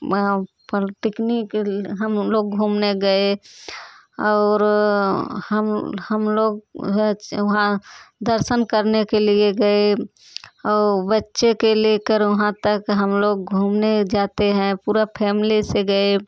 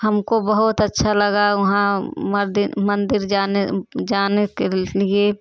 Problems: none marked